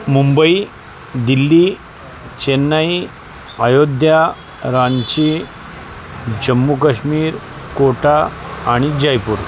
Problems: constant background noise, background conversations at intervals